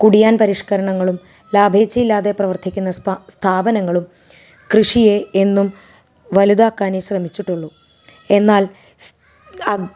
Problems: background sounds at intervals